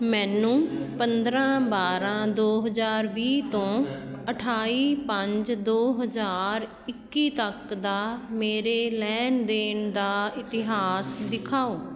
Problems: background sounds at intervals, continuous background conversations